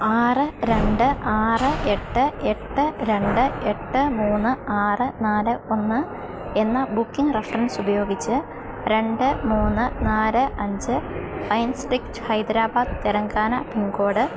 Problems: constant background noise